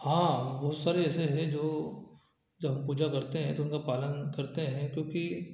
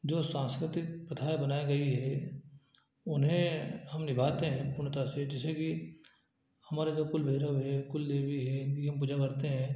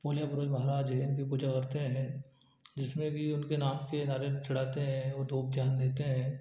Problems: low volume